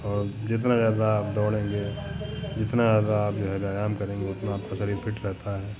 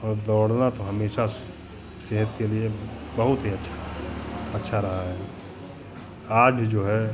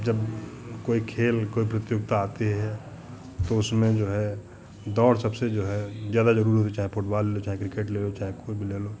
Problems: none marked